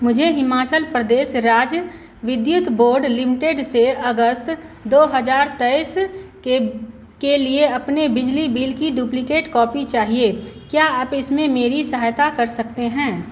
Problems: constant background noise